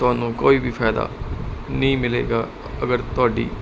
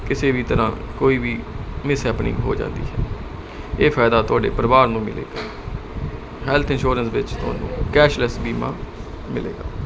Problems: constant background noise